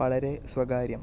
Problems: none marked